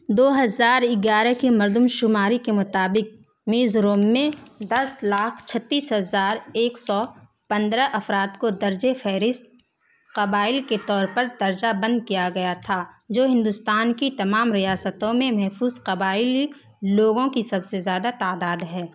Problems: constant background noise